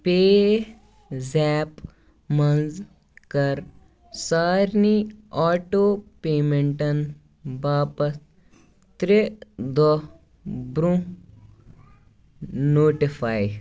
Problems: background sounds at intervals, background conversations at intervals